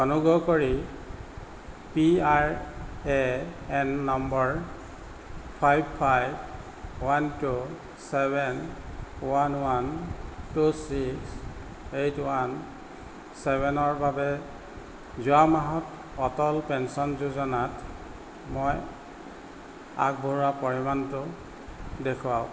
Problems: constant background noise